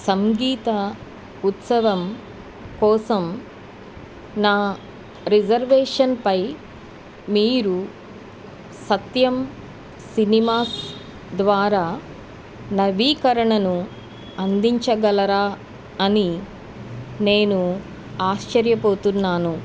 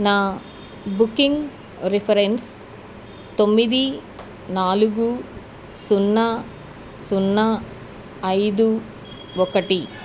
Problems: background sounds at intervals